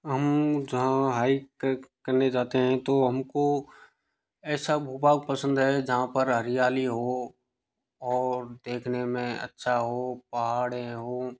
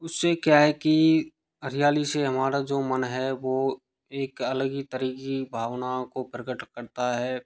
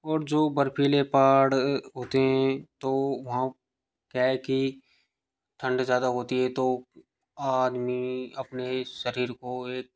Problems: none marked